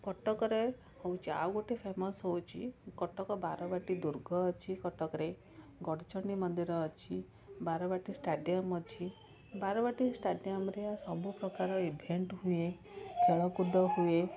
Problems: constant background noise, continuous background conversations